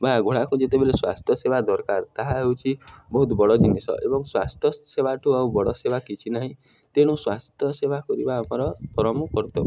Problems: background sounds at intervals, background conversations at intervals